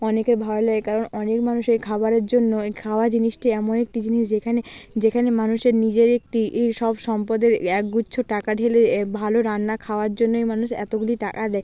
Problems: background sounds at intervals